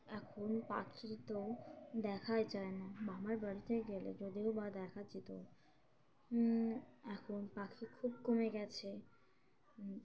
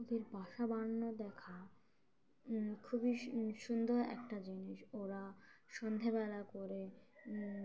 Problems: constant background noise, background conversations at intervals